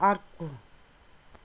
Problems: none marked